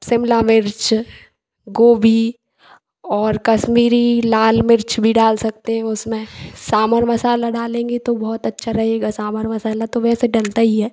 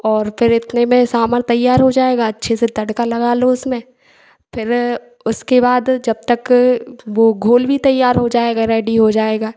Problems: none marked